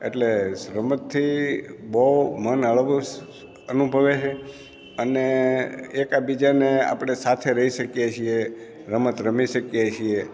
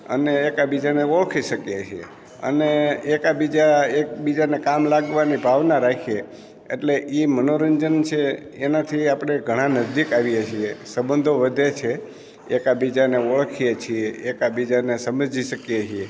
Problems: none marked